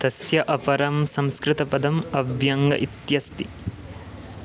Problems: none marked